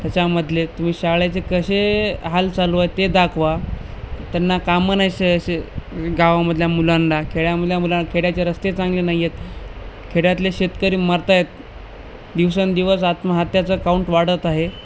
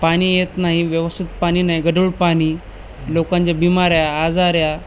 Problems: constant background noise